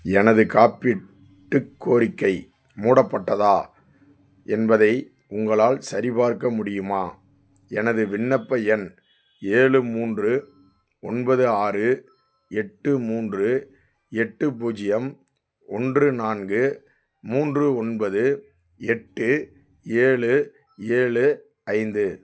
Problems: none marked